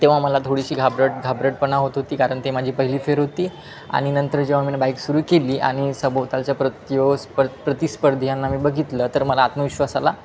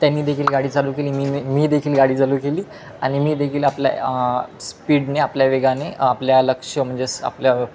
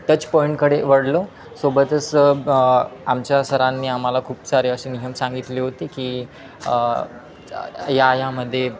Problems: constant background noise, continuous background conversations